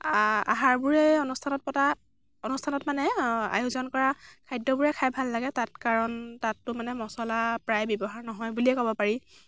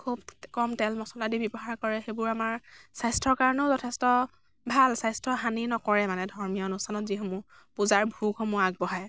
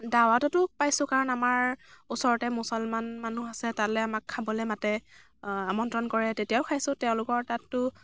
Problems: background sounds at intervals